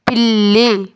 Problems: none marked